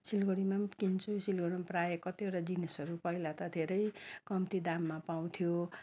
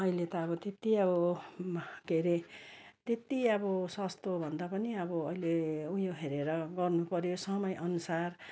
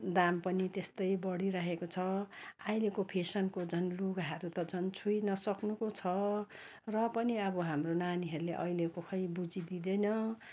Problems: none marked